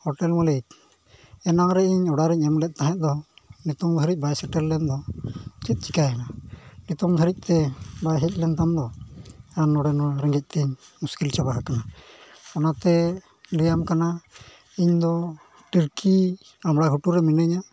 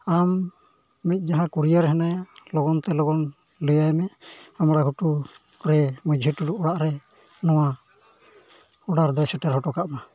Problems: background sounds at intervals